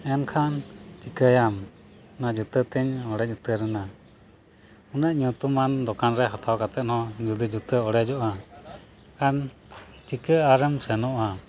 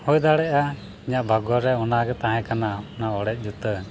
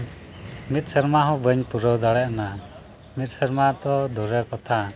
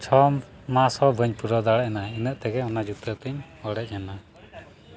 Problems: background sounds at intervals